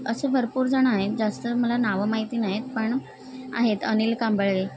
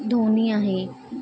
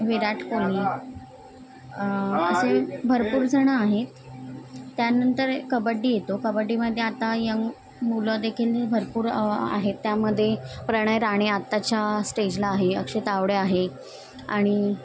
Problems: background conversations at intervals